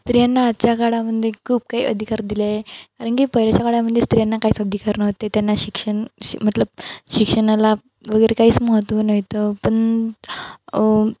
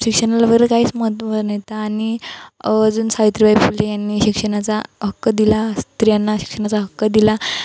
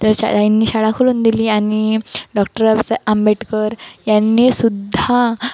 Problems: constant background noise